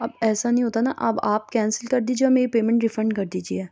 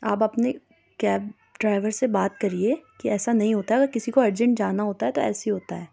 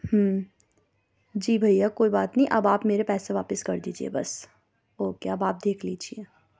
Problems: background sounds at intervals